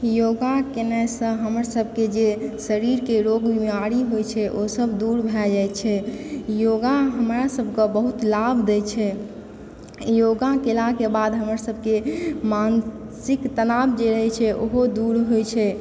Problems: background sounds at intervals